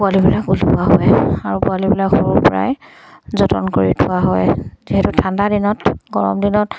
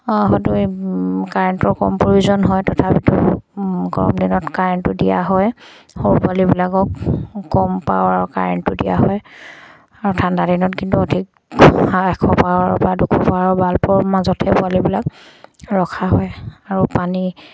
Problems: none marked